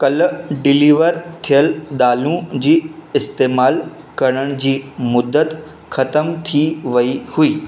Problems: constant background noise